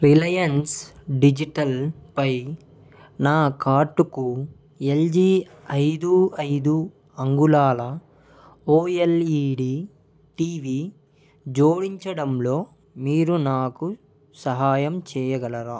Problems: background sounds at intervals, background conversations at intervals